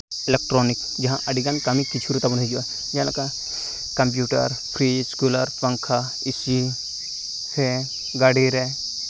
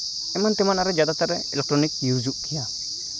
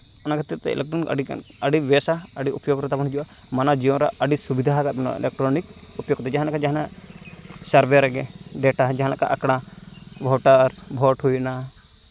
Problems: none marked